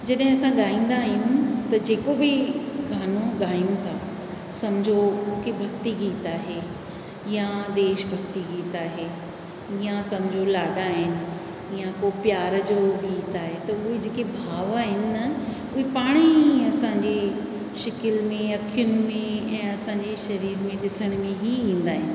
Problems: constant background noise, echo